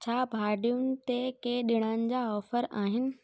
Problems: none marked